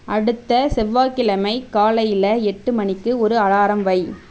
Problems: none marked